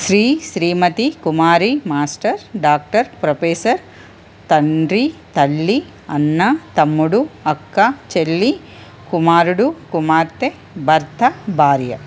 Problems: constant background noise